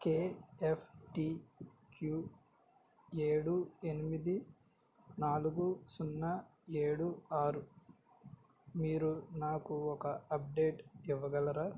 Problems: low volume